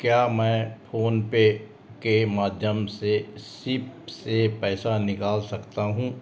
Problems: constant background noise, background conversations at intervals